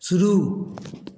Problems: echo